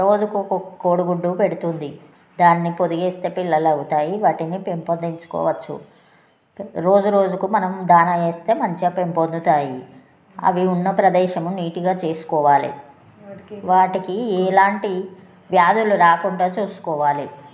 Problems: none marked